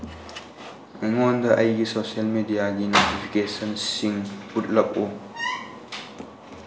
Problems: background sounds at intervals